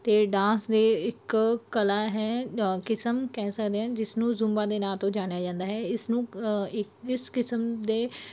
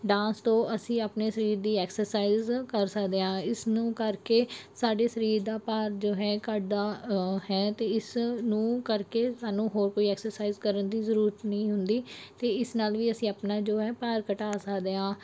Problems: background sounds at intervals